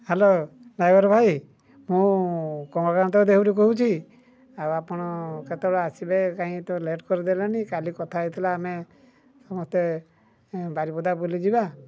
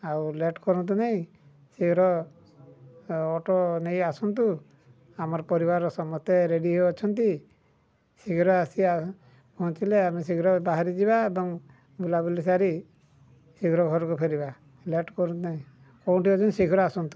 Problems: low volume